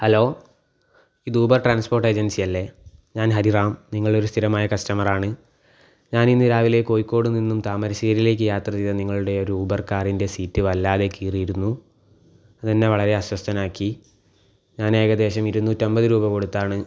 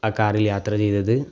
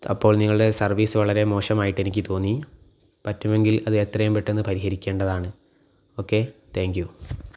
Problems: none marked